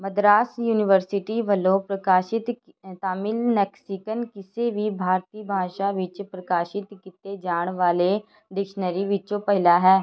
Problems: background sounds at intervals, background conversations at intervals